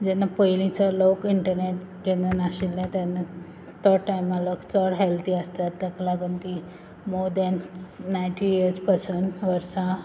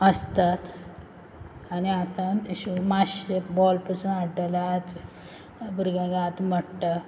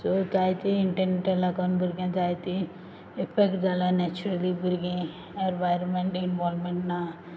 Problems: background sounds at intervals